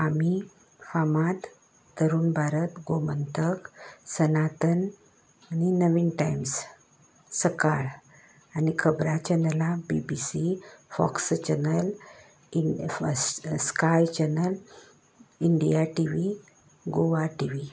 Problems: constant background noise